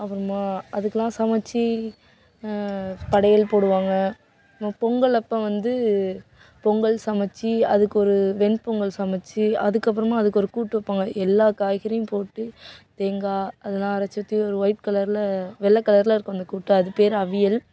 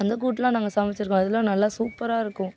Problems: background sounds at intervals